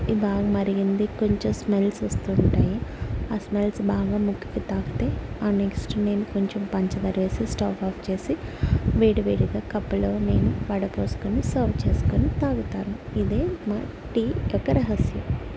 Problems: constant background noise